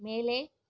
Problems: low volume